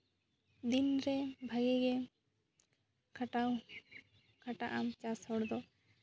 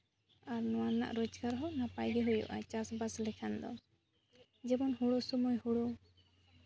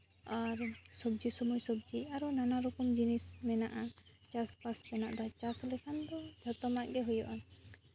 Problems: none marked